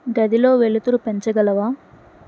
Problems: none marked